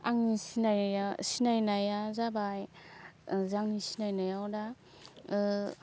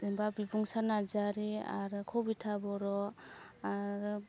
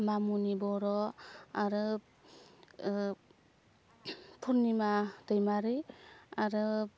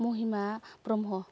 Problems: constant background noise